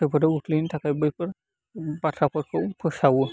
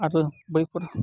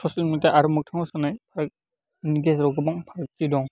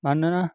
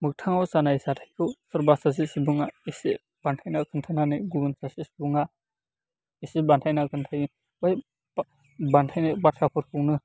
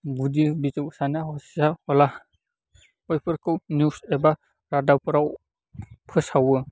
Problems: constant background noise